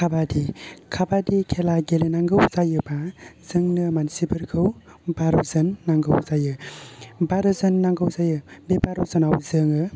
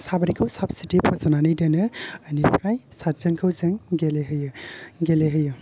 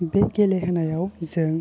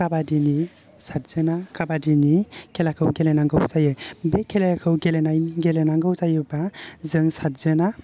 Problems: low volume